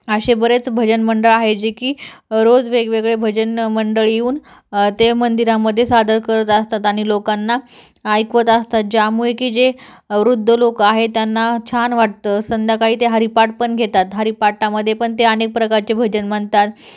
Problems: background sounds at intervals